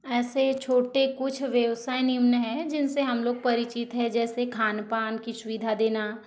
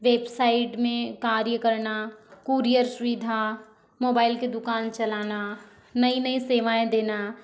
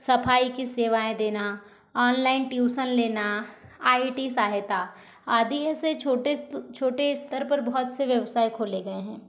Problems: none marked